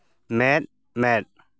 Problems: none marked